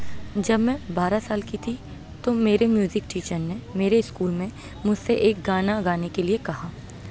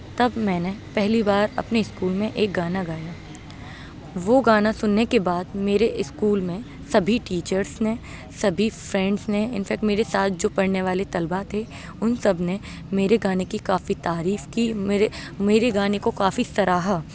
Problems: constant background noise